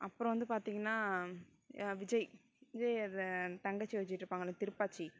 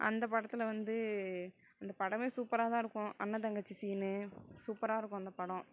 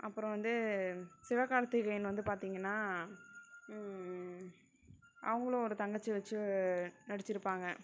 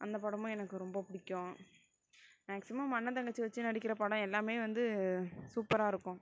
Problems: none marked